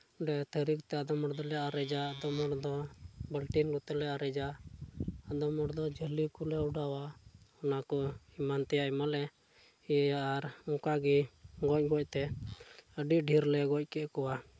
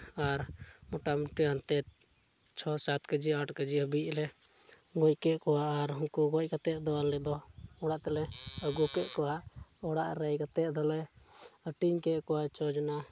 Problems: background sounds at intervals, low volume